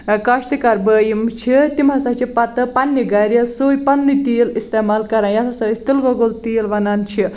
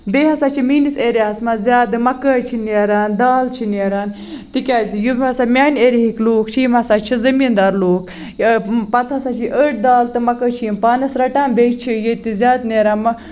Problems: background sounds at intervals